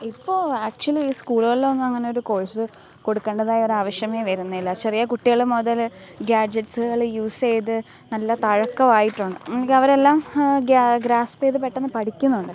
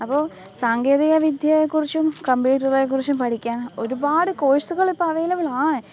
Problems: background sounds at intervals, low volume